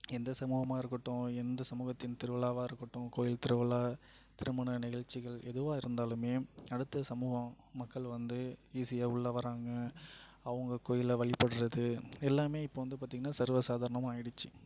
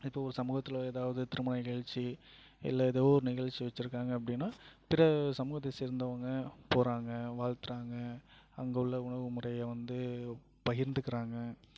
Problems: low volume